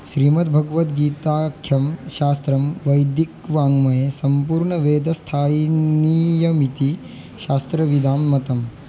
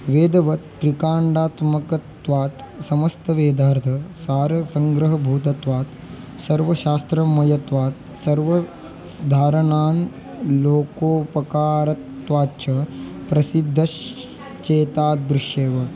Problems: constant background noise, background conversations at intervals